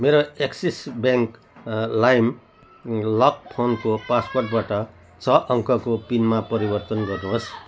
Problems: constant background noise